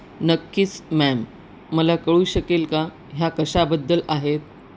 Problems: none marked